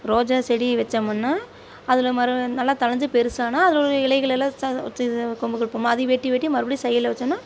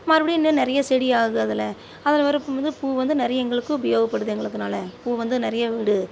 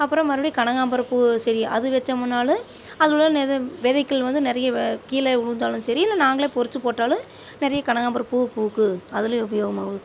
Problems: constant background noise